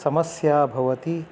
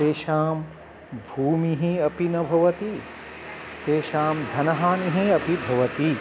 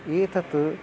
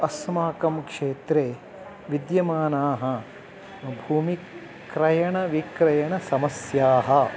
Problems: none marked